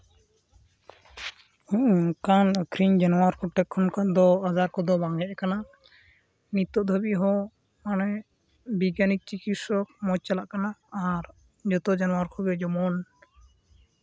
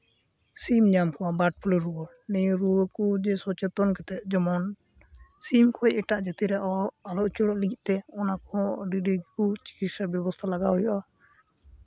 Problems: background sounds at intervals